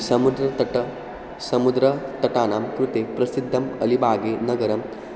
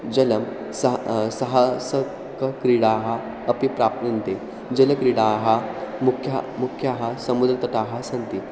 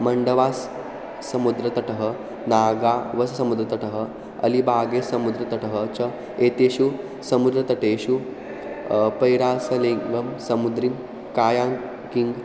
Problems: none marked